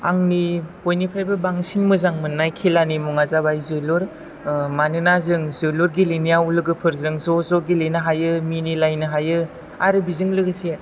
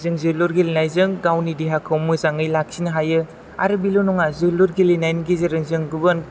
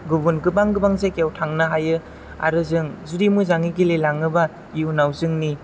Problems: none marked